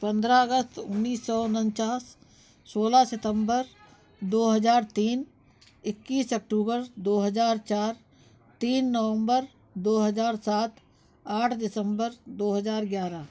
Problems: none marked